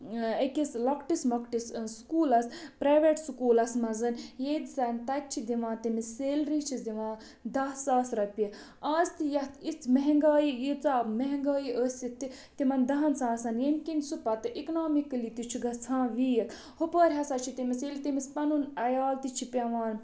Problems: none marked